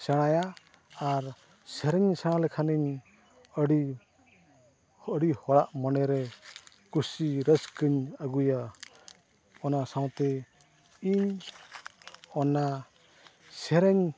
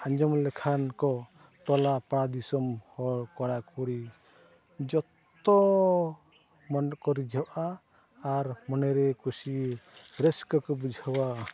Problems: constant background noise, low volume